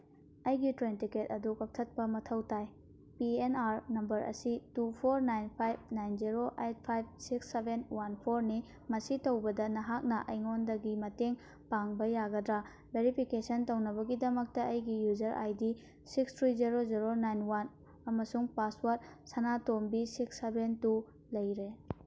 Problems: none marked